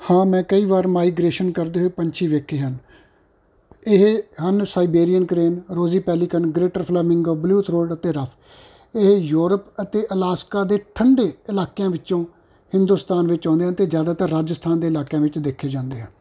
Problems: constant background noise